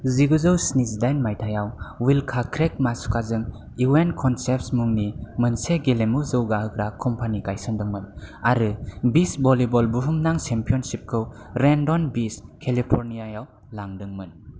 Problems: none marked